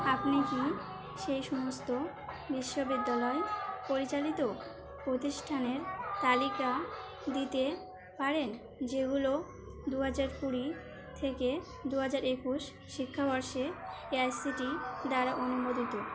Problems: constant background noise